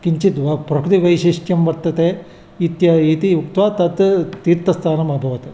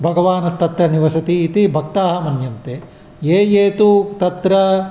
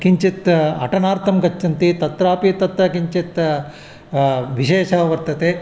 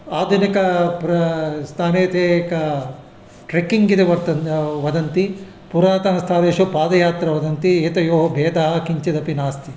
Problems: none marked